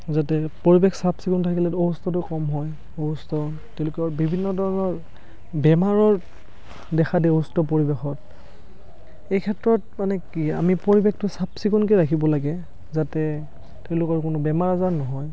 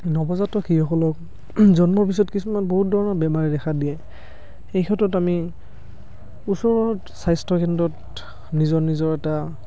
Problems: none marked